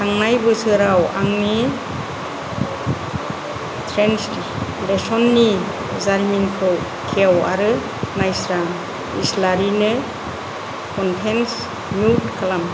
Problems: constant background noise, low volume